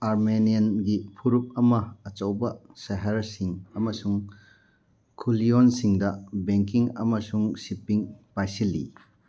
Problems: none marked